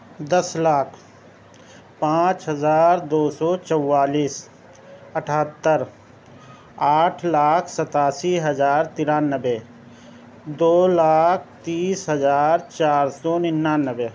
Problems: none marked